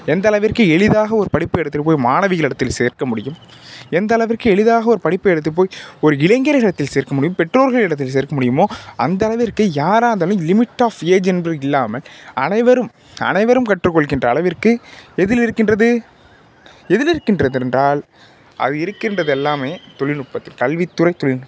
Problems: background sounds at intervals